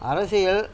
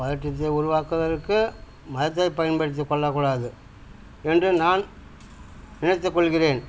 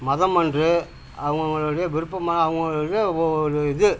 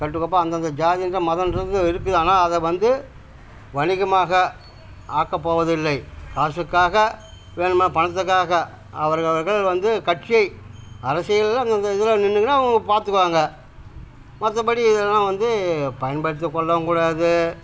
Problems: constant background noise